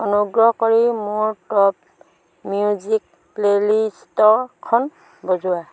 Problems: background sounds at intervals